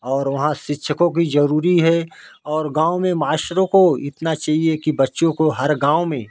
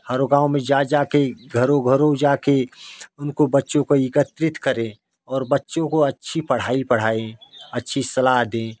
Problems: none marked